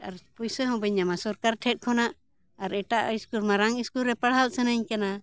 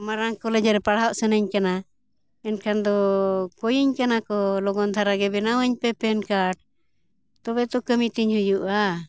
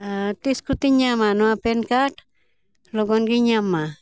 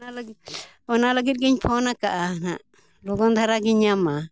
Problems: background sounds at intervals